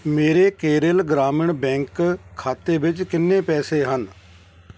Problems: constant background noise